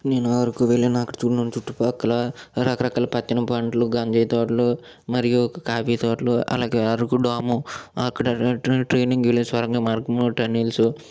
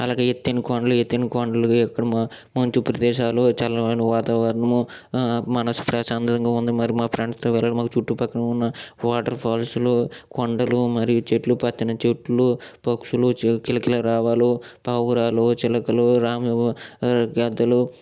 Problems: none marked